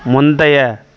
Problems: background sounds at intervals